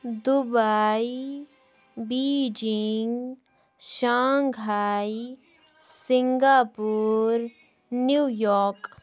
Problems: background sounds at intervals, background conversations at intervals